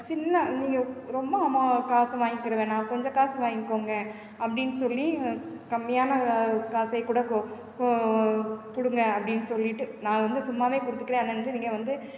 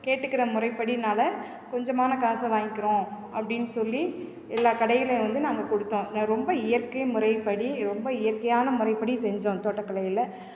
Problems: none marked